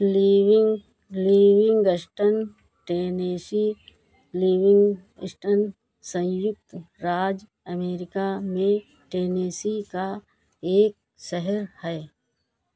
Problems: none marked